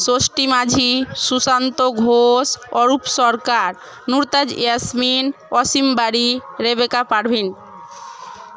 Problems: none marked